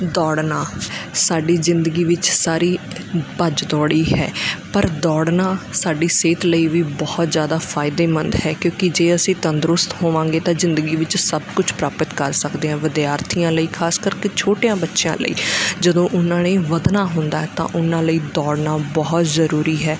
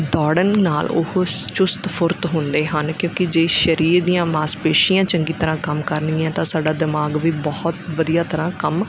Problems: background sounds at intervals